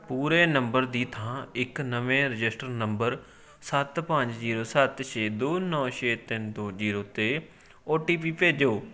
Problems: continuous background conversations